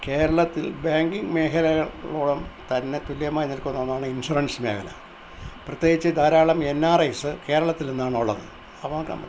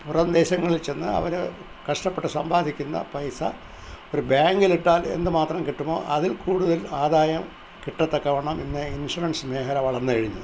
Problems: none marked